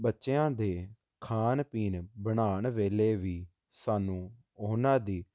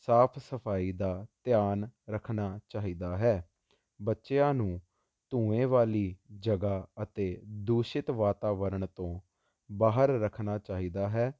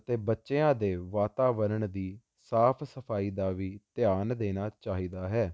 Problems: constant background noise